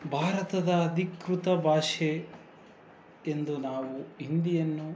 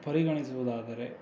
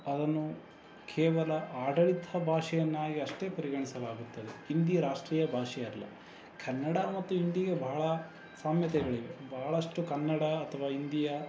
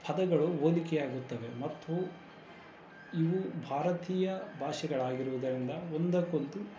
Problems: none marked